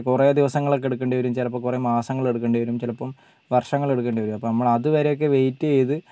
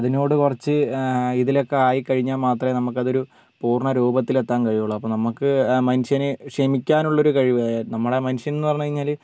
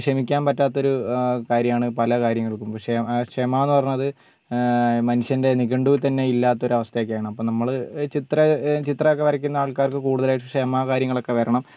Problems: background sounds at intervals, low volume